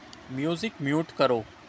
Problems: none marked